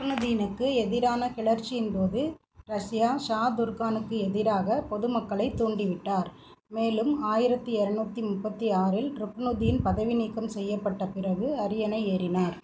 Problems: none marked